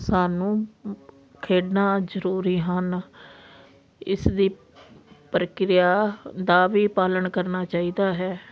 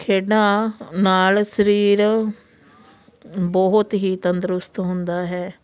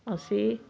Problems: constant background noise